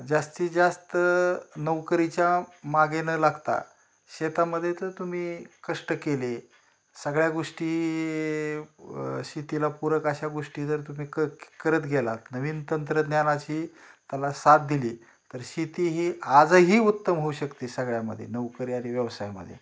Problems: none marked